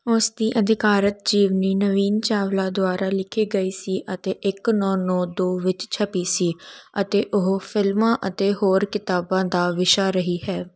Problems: none marked